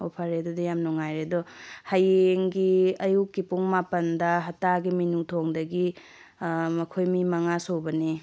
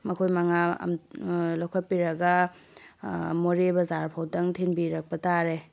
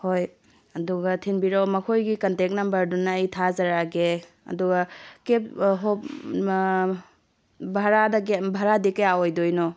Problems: none marked